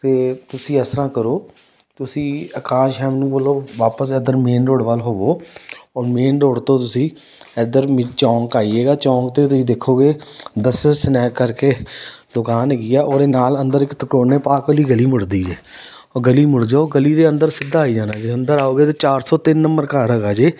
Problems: none marked